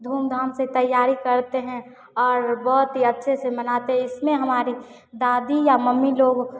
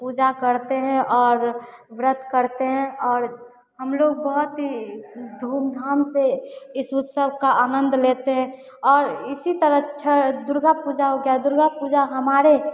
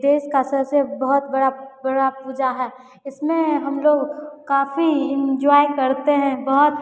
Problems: none marked